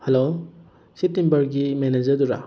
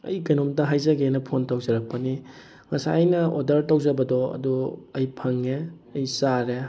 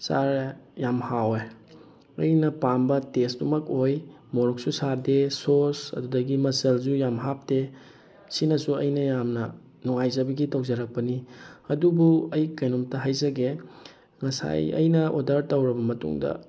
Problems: constant background noise